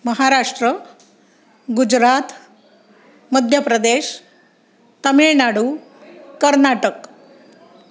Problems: background sounds at intervals, background conversations at intervals